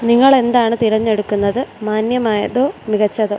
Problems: constant background noise